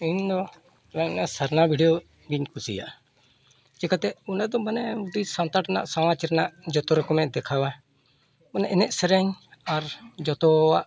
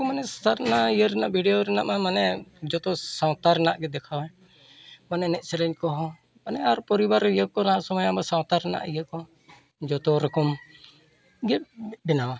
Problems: constant background noise, background conversations at intervals